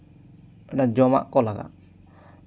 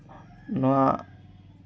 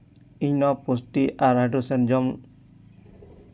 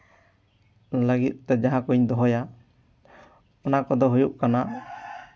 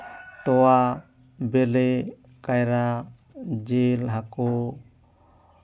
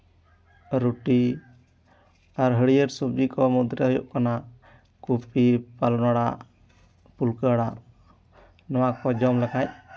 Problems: background sounds at intervals, background conversations at intervals